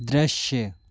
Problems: constant background noise